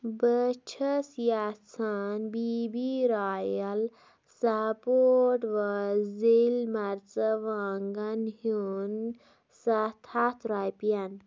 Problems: none marked